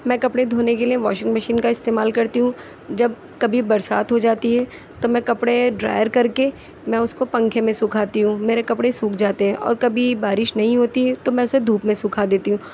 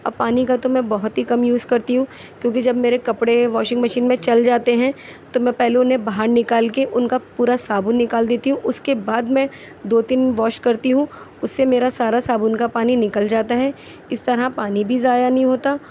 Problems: none marked